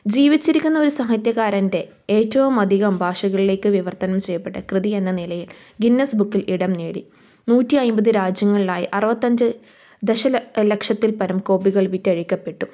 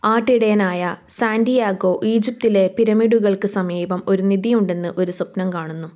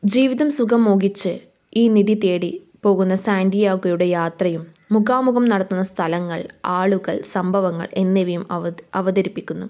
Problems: none marked